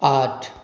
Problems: constant background noise